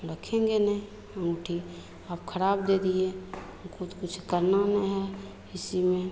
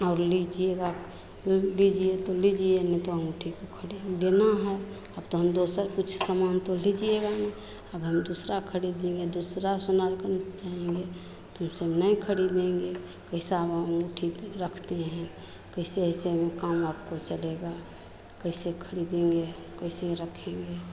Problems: constant background noise, continuous background conversations